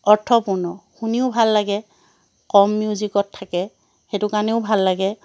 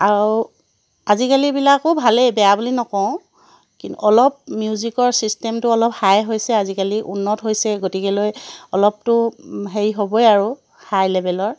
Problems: none marked